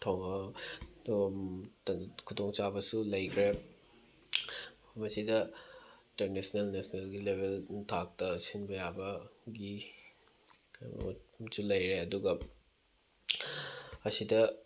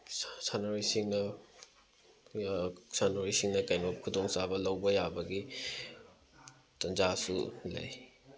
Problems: background sounds at intervals, background conversations at intervals